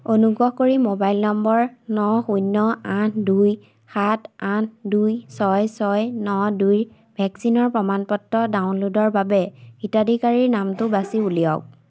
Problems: constant background noise